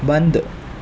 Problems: constant background noise